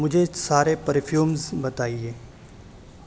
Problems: constant background noise